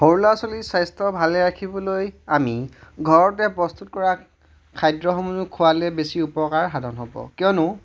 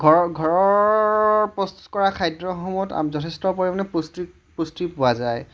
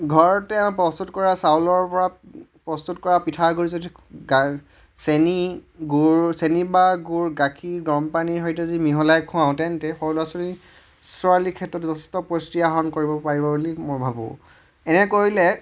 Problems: none marked